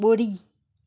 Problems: none marked